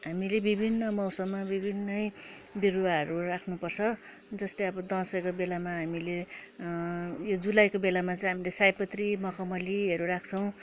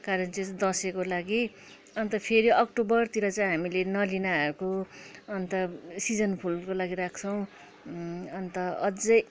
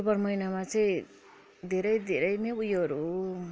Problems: background sounds at intervals, background conversations at intervals